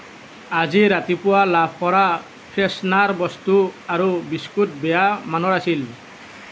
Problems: none marked